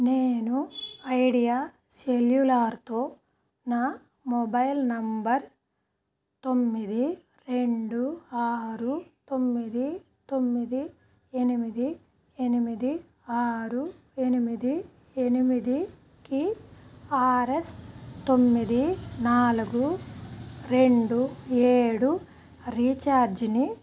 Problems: background sounds at intervals